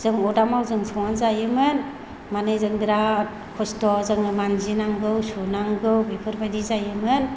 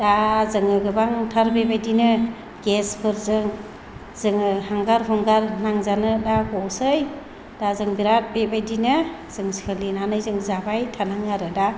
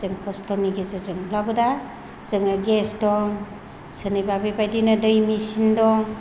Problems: low volume